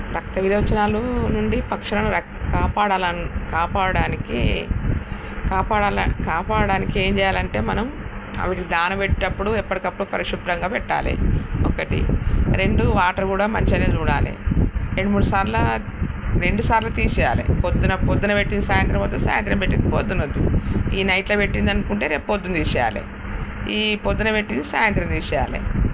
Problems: constant background noise